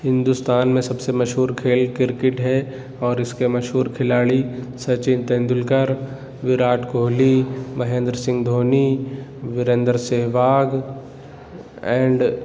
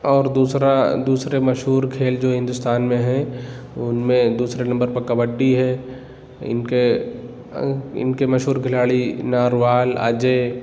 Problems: background sounds at intervals